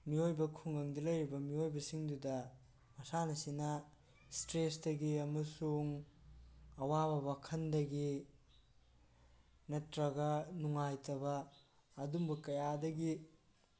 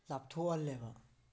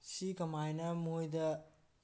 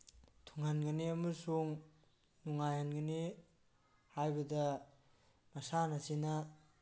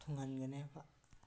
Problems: background conversations at intervals